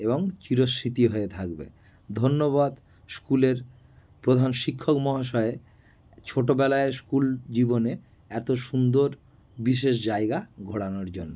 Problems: constant background noise